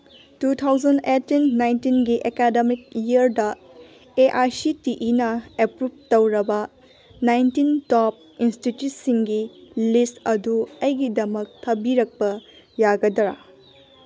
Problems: background sounds at intervals, background conversations at intervals